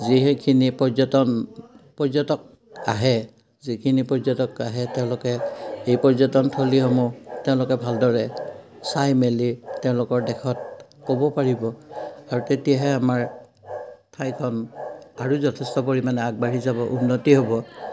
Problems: none marked